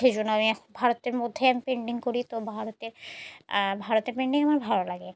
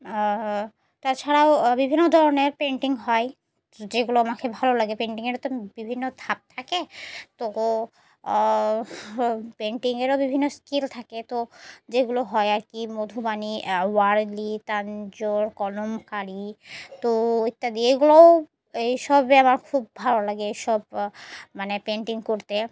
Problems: background sounds at intervals